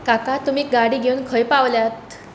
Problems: constant background noise